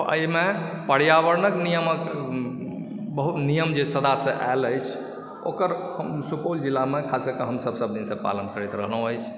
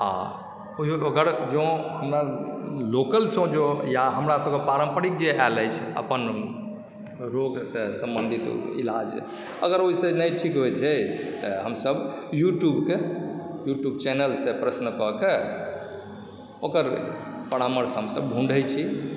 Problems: background sounds at intervals